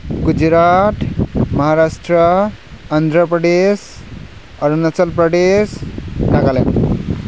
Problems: none marked